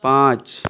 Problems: constant background noise